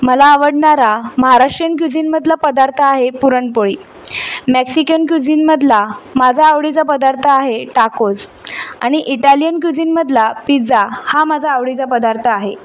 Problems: constant background noise, background conversations at intervals